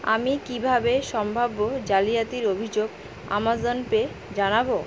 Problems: constant background noise